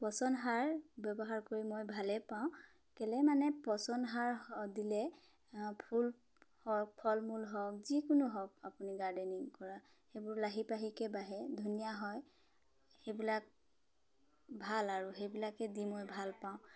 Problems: background conversations at intervals